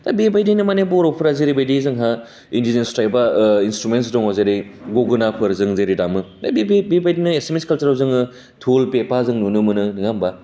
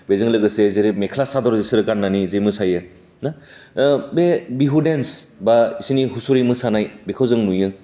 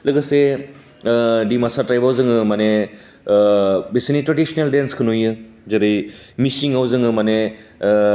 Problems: constant background noise